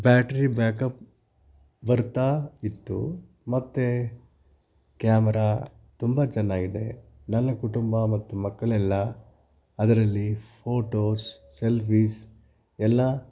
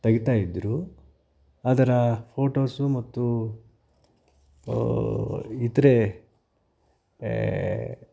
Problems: background sounds at intervals